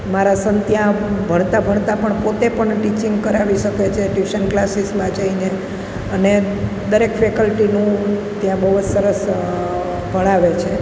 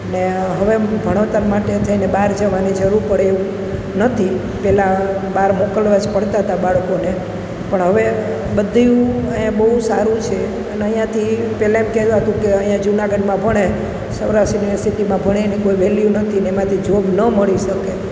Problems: constant background noise